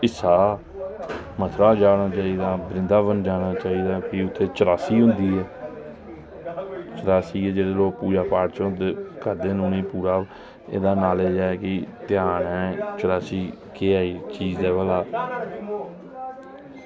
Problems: none marked